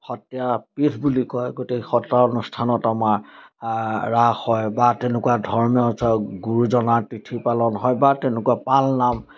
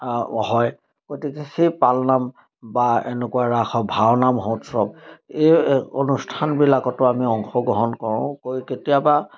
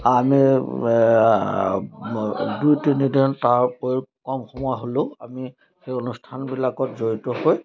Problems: constant background noise